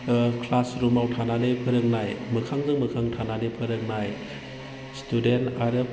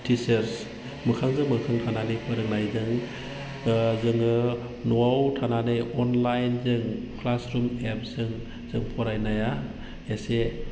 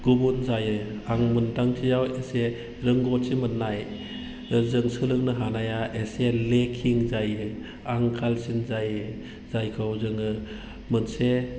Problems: low volume